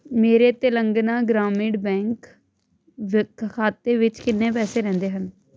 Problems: constant background noise